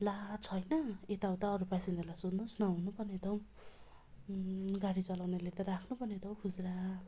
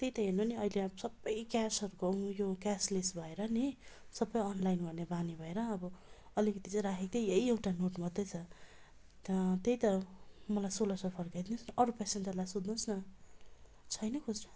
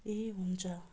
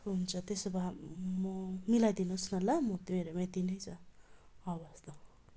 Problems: constant background noise, continuous background conversations